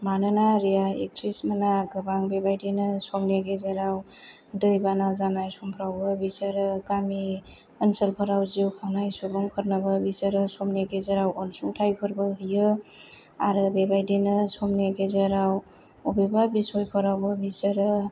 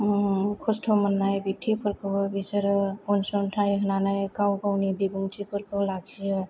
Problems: none marked